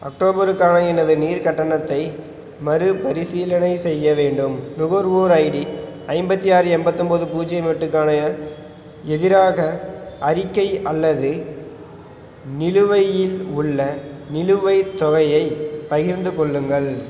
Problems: none marked